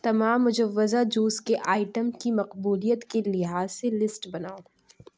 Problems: none marked